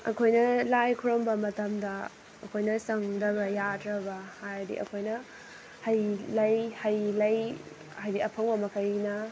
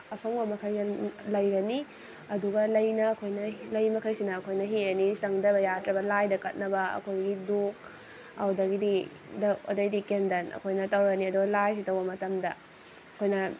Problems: constant background noise, background conversations at intervals